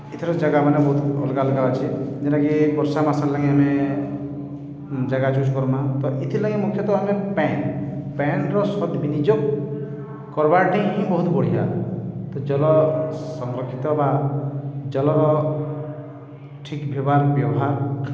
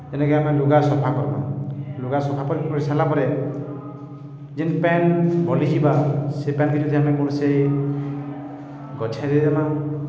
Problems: echo